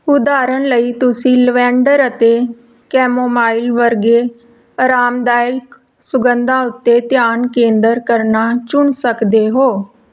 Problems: none marked